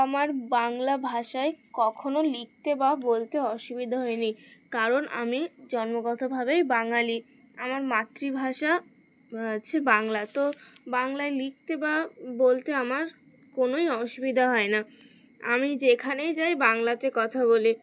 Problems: constant background noise